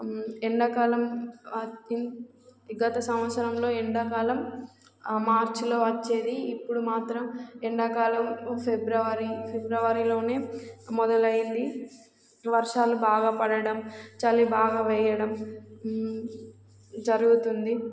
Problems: constant background noise